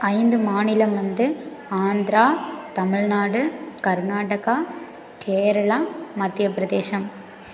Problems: none marked